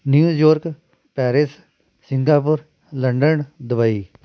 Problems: constant background noise